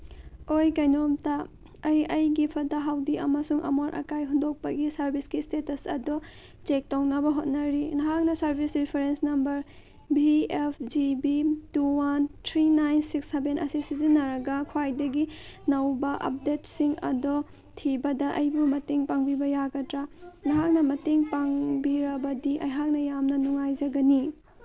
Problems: none marked